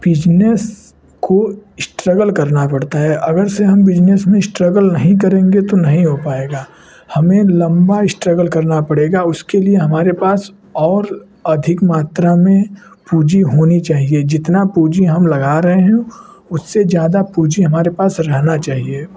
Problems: constant background noise